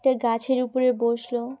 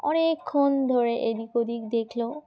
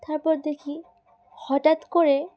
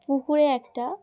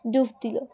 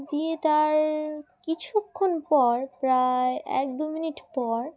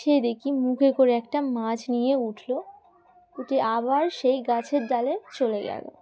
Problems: background sounds at intervals